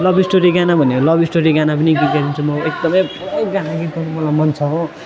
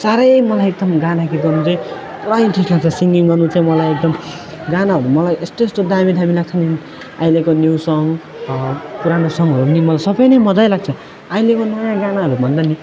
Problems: continuous background conversations